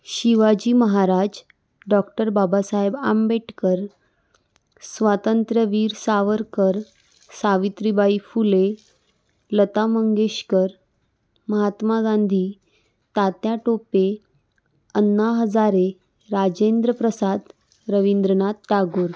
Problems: none marked